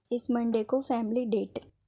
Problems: none marked